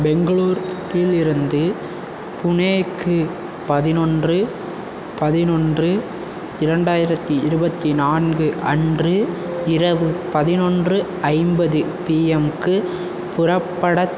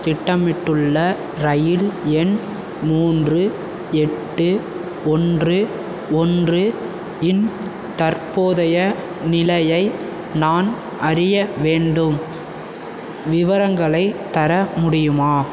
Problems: constant background noise